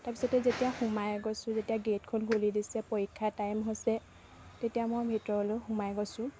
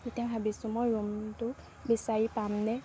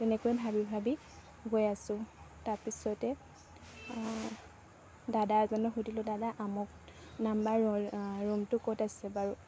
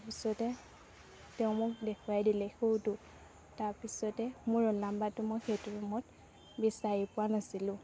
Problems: background sounds at intervals